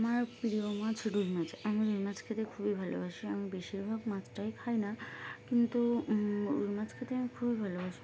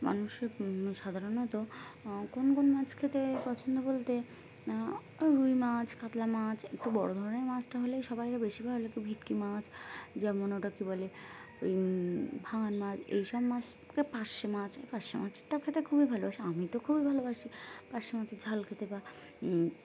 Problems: none marked